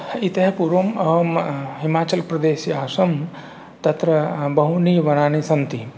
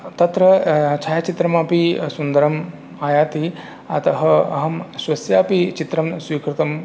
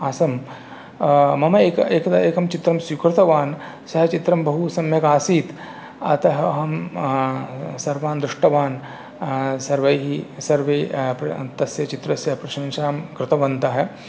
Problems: none marked